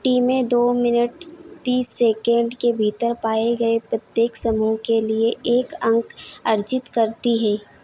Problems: none marked